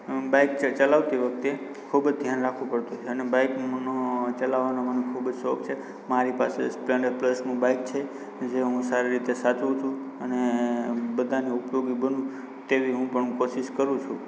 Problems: constant background noise